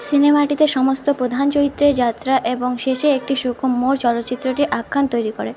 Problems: constant background noise